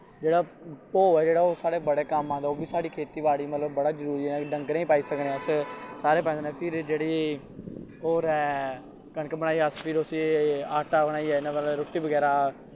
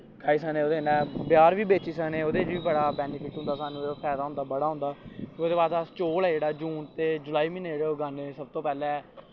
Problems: background sounds at intervals